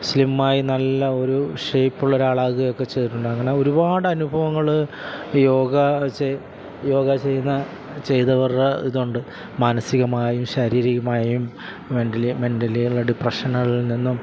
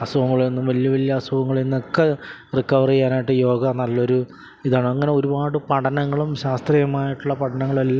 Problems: constant background noise